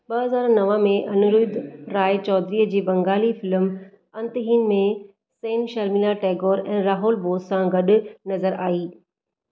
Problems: none marked